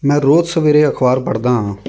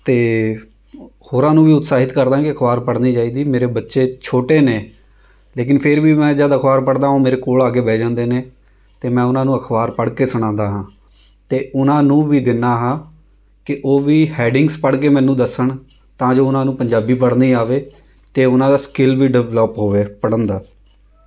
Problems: background sounds at intervals